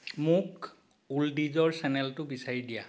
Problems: background sounds at intervals